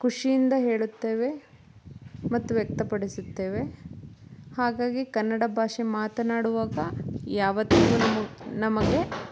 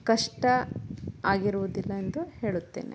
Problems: background sounds at intervals